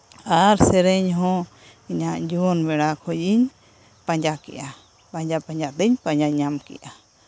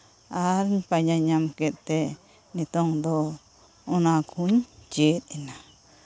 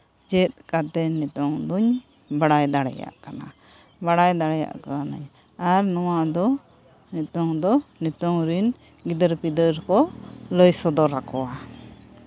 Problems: none marked